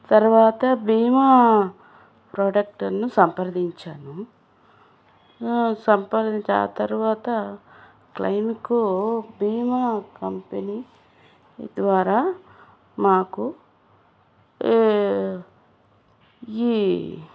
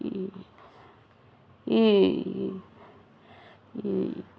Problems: none marked